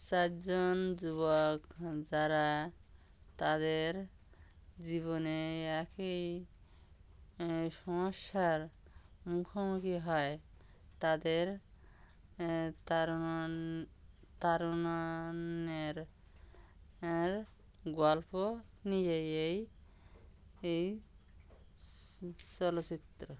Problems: constant background noise